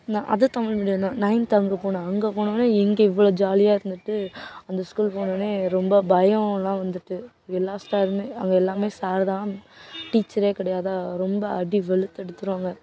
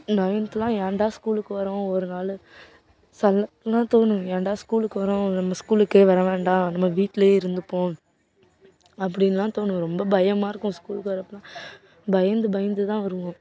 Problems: background sounds at intervals